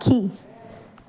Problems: constant background noise, echo